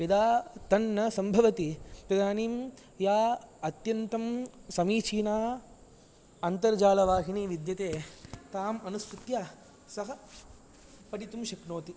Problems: low volume